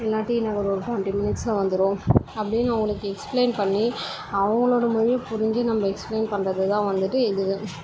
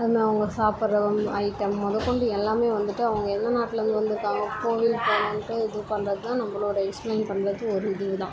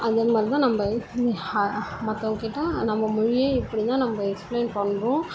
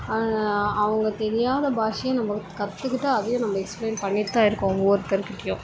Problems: constant background noise, background conversations at intervals